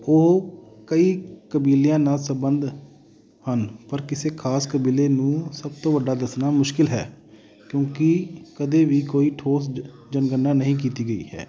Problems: continuous background conversations